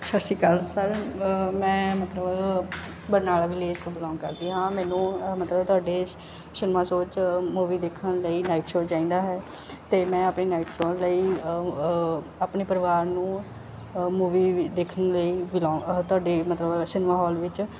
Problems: none marked